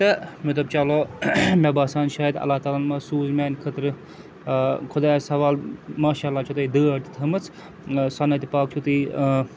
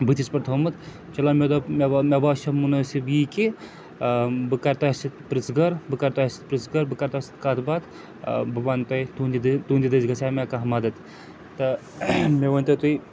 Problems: constant background noise